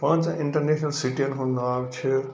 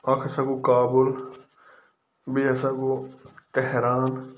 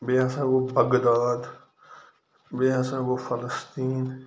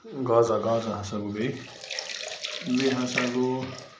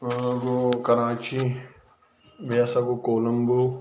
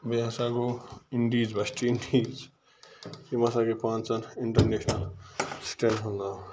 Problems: constant background noise